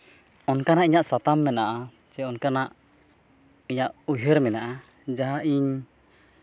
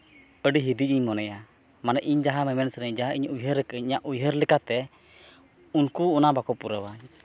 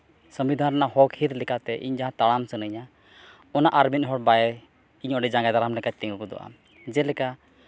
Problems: none marked